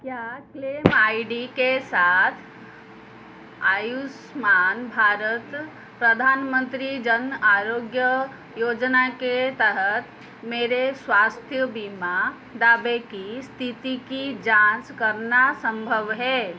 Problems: background sounds at intervals